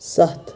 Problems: none marked